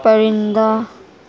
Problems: none marked